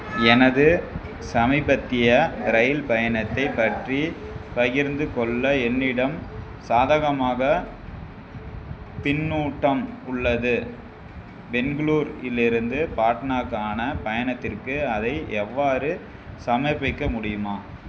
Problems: constant background noise, background conversations at intervals